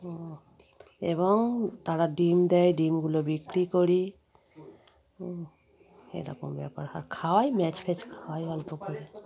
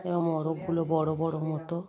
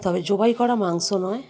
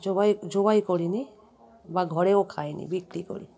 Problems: background sounds at intervals, continuous background conversations